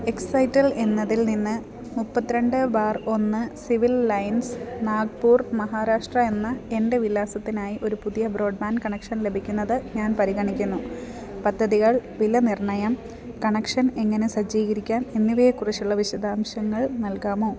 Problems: none marked